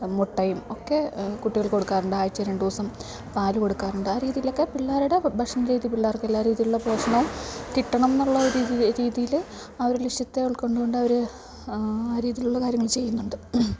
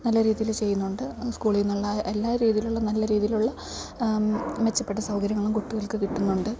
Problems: background sounds at intervals